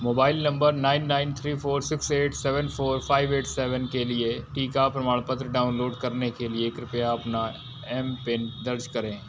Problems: constant background noise